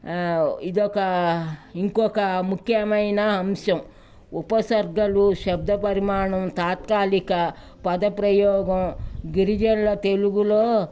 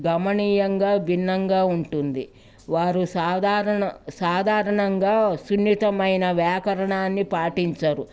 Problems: background sounds at intervals, background conversations at intervals